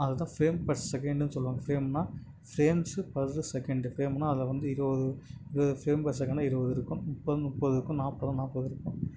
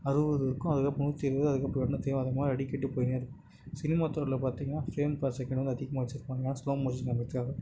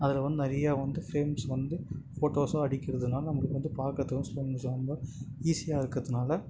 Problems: constant background noise